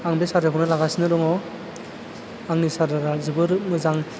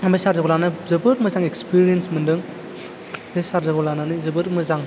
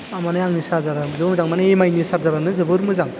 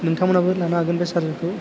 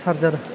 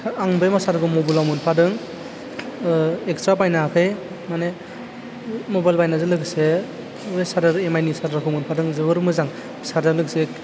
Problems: low volume